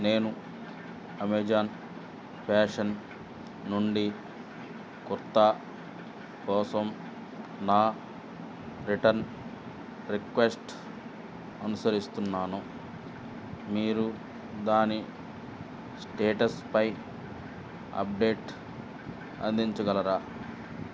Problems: constant background noise, low volume